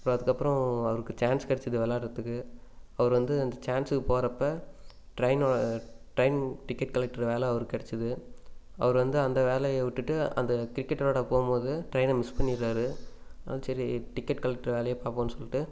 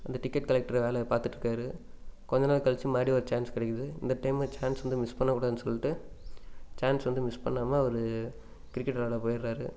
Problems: none marked